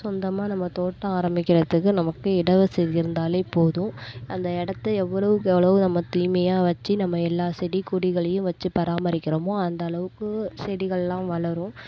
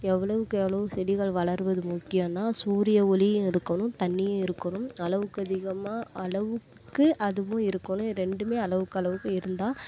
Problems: none marked